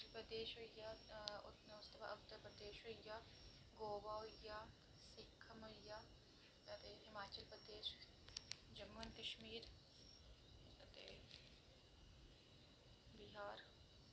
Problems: constant background noise